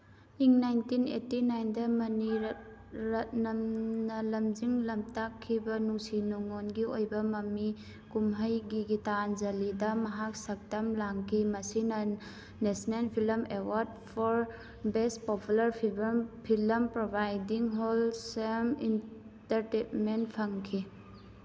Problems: background sounds at intervals